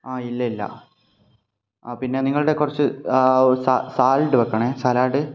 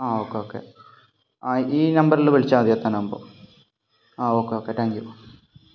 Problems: low volume